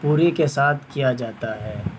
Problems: constant background noise